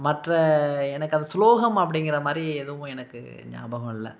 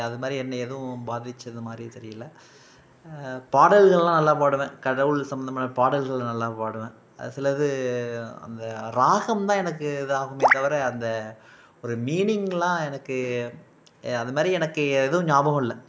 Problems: background sounds at intervals